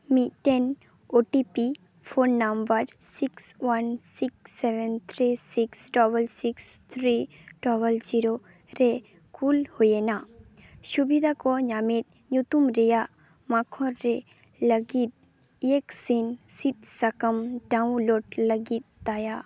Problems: constant background noise, background conversations at intervals